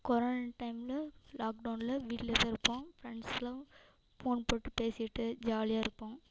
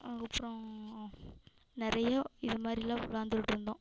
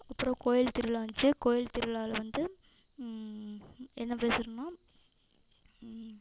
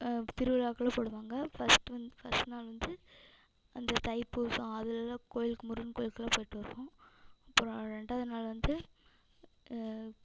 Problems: echo